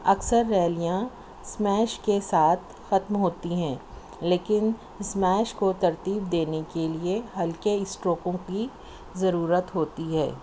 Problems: none marked